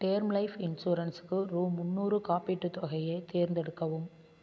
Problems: constant background noise